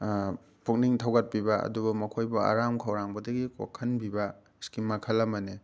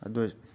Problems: none marked